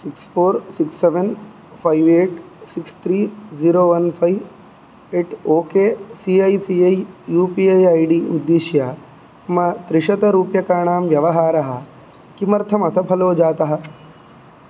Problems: none marked